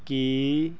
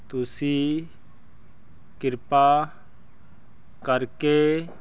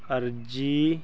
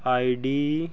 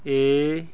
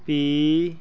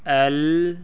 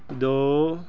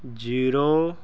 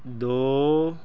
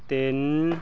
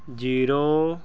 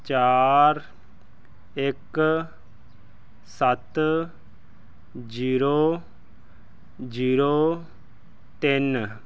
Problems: none marked